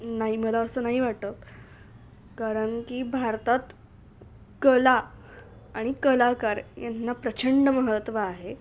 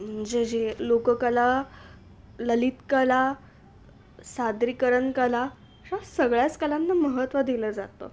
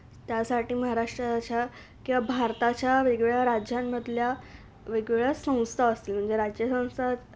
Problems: none marked